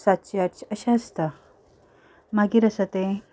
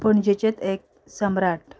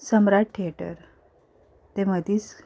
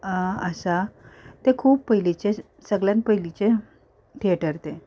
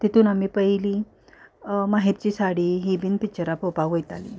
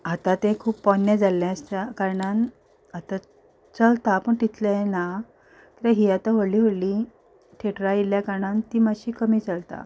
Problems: none marked